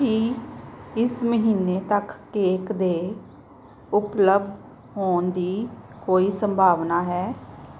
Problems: background sounds at intervals